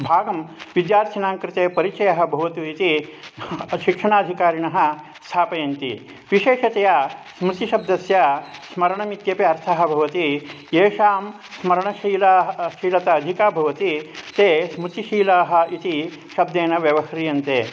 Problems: constant background noise